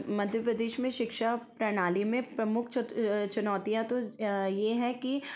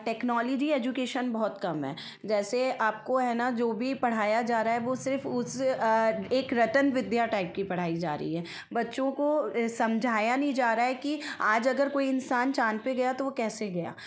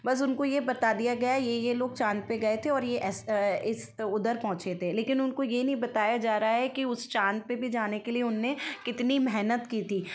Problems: constant background noise